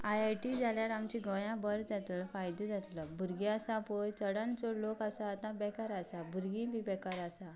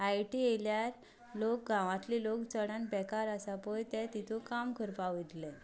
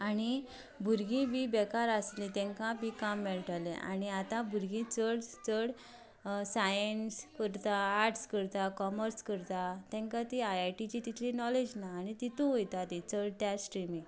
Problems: background sounds at intervals, background conversations at intervals